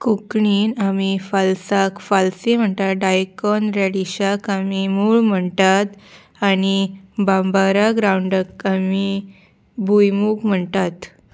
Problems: none marked